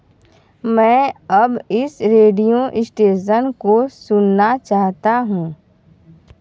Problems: background sounds at intervals